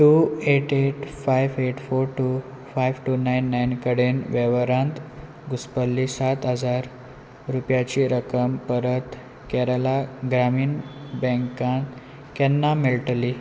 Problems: constant background noise